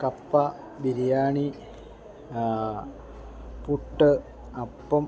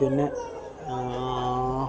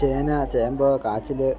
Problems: low volume